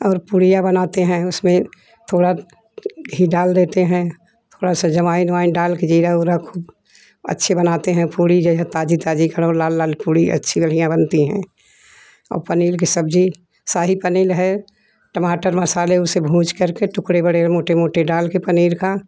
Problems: background sounds at intervals